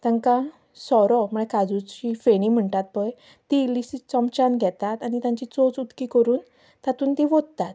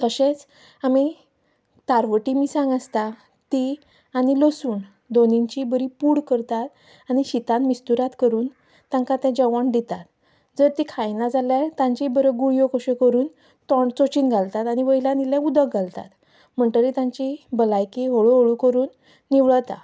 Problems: background sounds at intervals